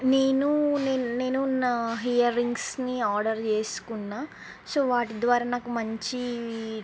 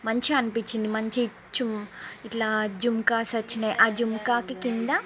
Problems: background conversations at intervals